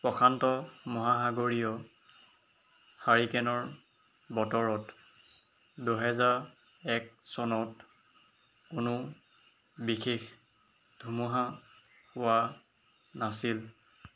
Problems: none marked